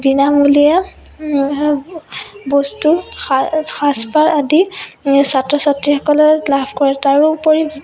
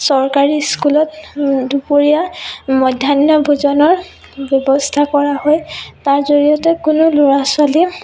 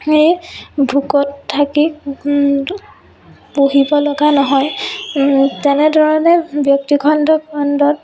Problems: background sounds at intervals, background conversations at intervals